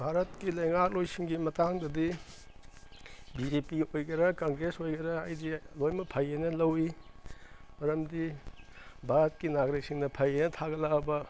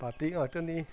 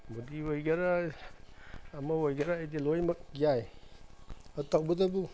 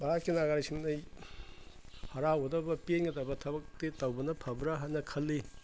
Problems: background sounds at intervals